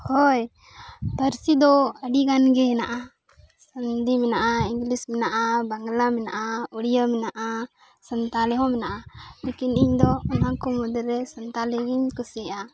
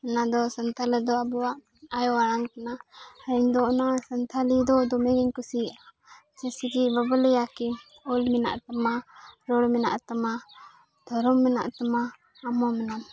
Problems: none marked